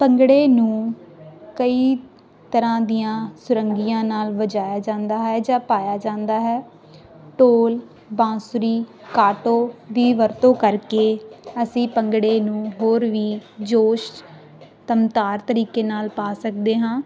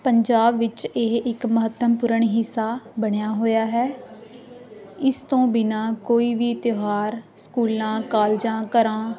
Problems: none marked